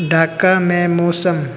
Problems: constant background noise